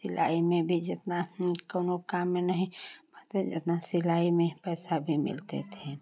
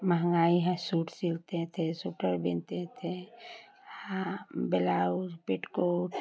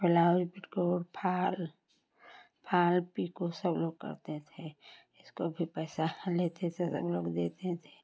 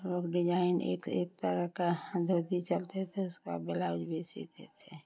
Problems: constant background noise, continuous background conversations